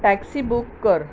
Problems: constant background noise